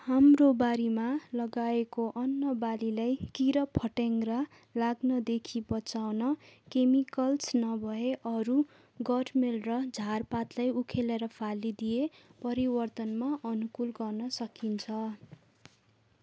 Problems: background sounds at intervals